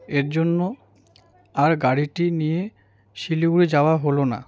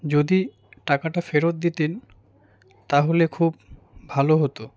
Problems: none marked